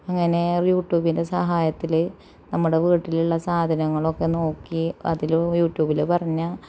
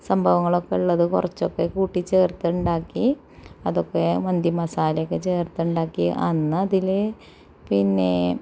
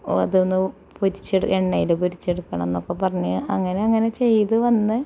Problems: none marked